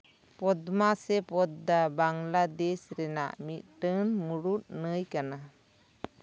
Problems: background sounds at intervals